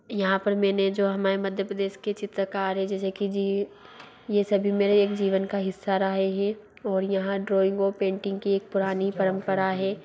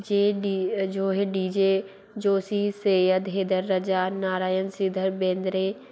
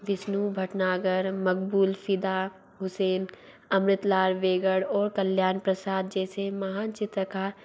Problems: low volume